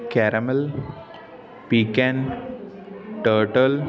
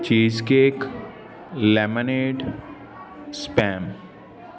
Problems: continuous background conversations